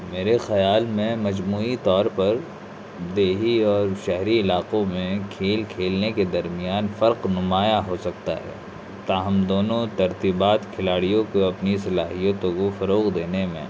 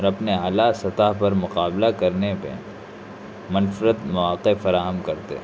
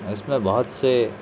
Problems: constant background noise